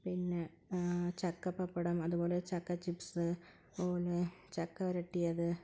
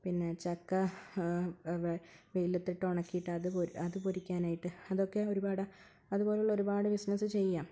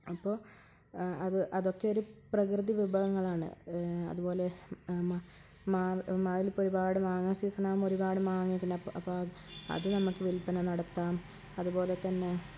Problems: low volume